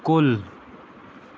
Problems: constant background noise